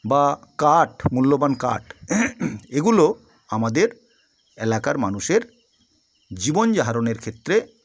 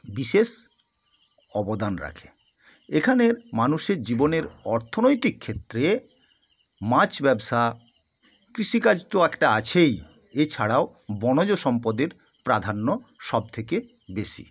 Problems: none marked